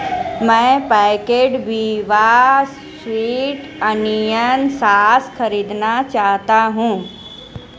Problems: constant background noise